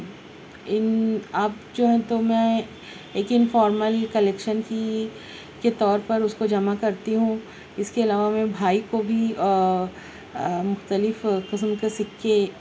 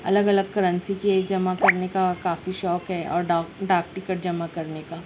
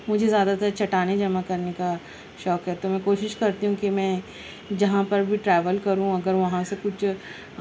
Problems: none marked